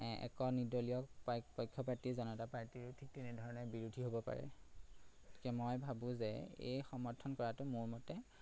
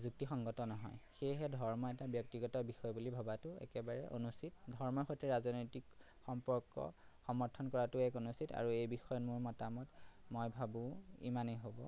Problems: constant background noise